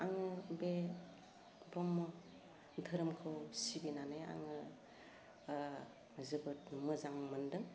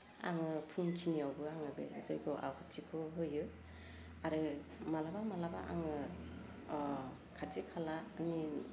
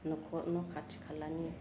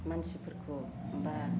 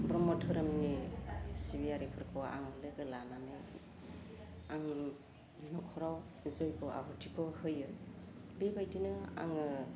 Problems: low volume